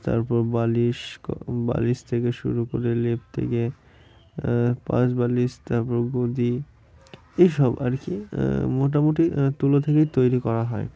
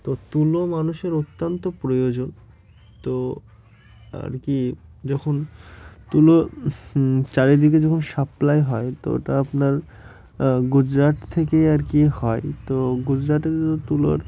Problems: constant background noise